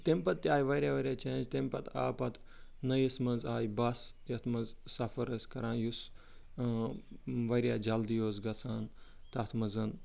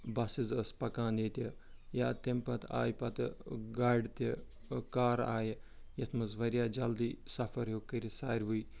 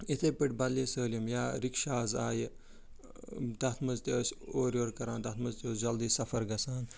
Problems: background sounds at intervals